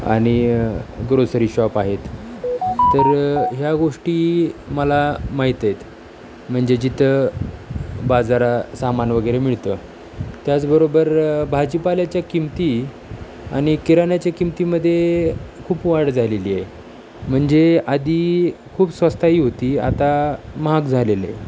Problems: none marked